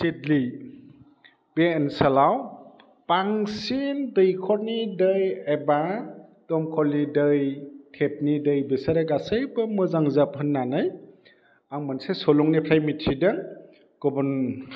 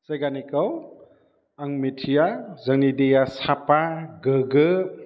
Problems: none marked